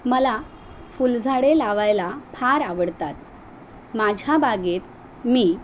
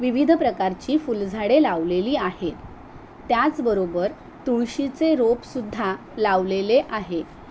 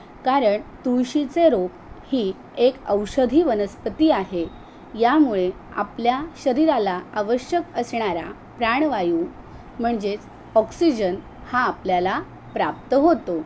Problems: none marked